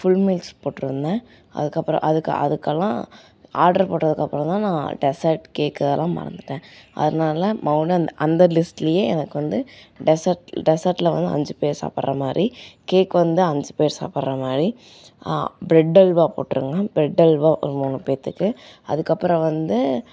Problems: none marked